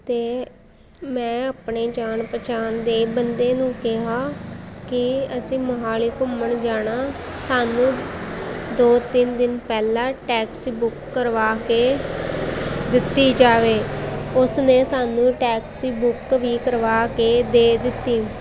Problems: none marked